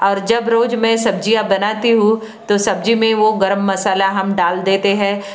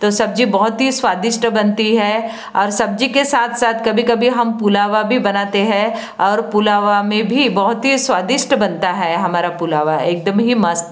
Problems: constant background noise